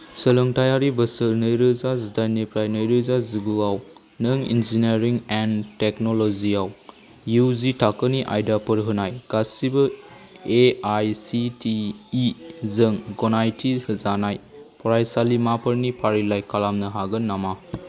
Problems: background sounds at intervals